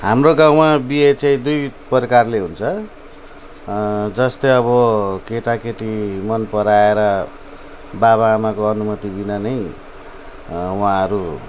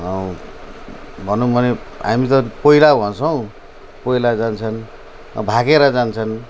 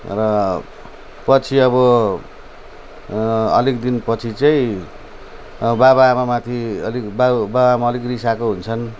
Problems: none marked